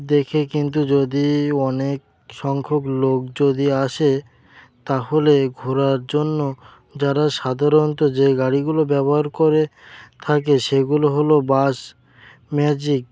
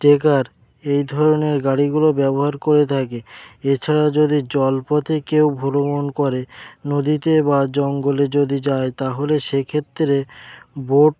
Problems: constant background noise